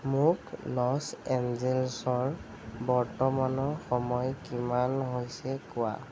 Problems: none marked